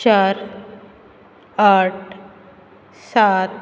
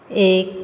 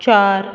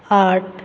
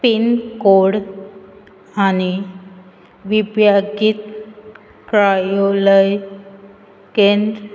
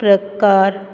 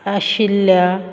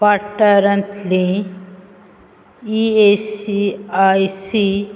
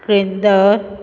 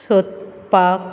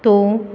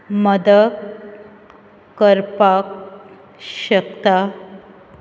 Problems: constant background noise